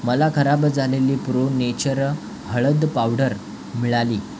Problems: constant background noise